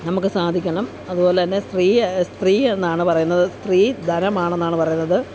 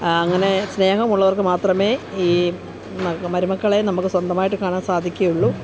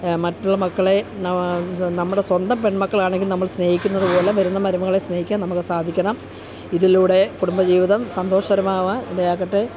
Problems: constant background noise